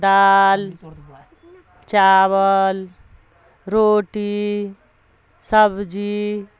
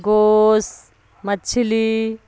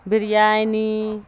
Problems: constant background noise